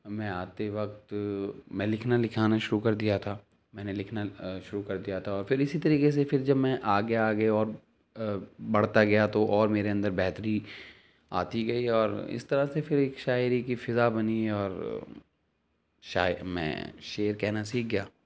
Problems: none marked